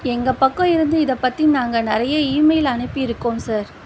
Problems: constant background noise